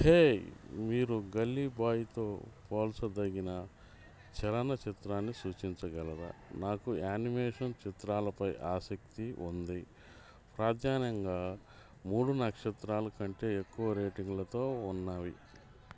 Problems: background conversations at intervals